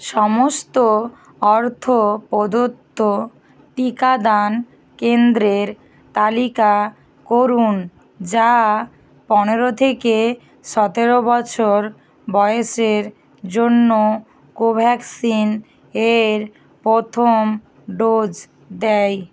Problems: constant background noise